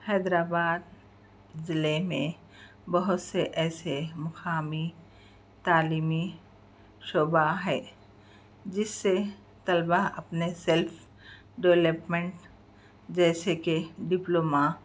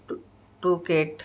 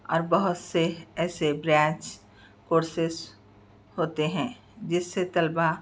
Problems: background sounds at intervals